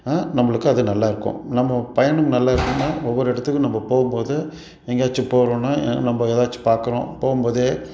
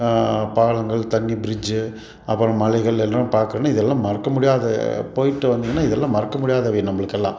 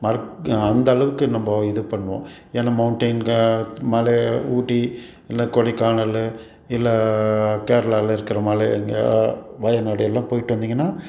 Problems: background sounds at intervals